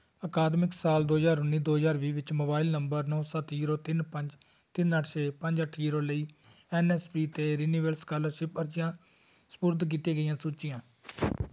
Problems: background sounds at intervals